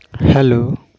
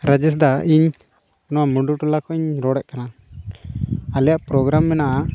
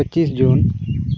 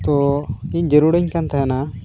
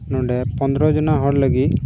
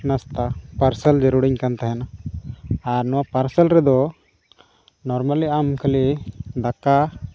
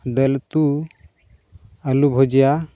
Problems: background sounds at intervals